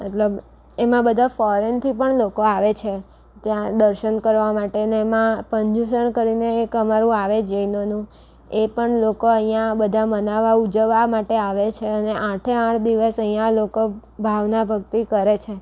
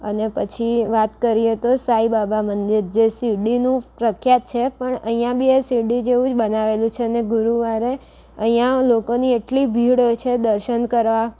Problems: none marked